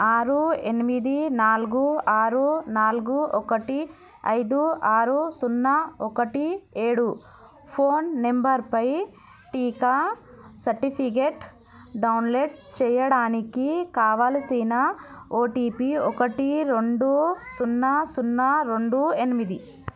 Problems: background conversations at intervals